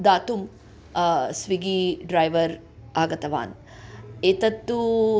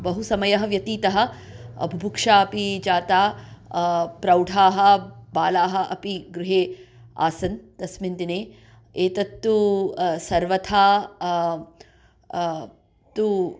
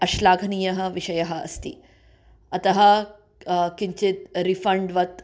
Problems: none marked